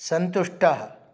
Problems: none marked